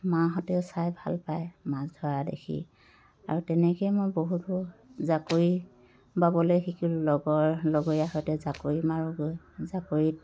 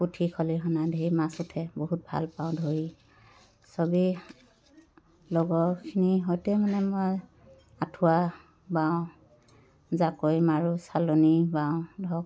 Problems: none marked